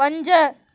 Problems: background sounds at intervals